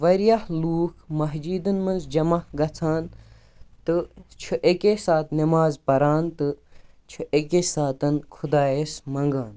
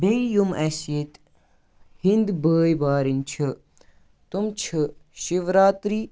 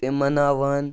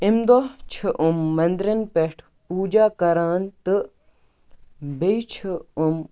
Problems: background sounds at intervals